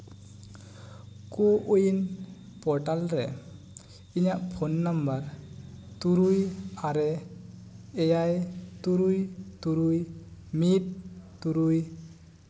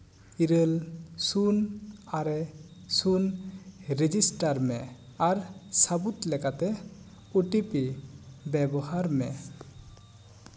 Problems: echo